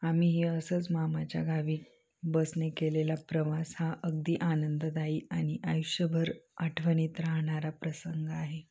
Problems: none marked